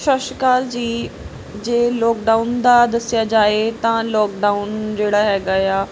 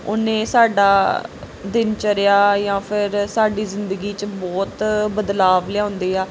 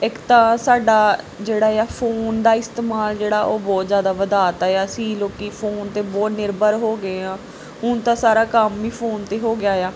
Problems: none marked